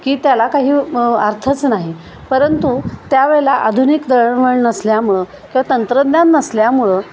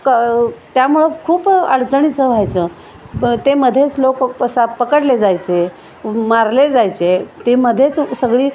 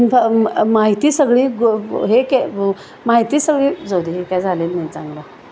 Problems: constant background noise